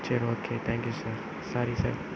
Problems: constant background noise